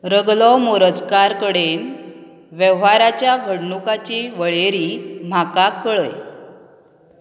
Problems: constant background noise